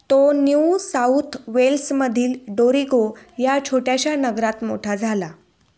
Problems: low volume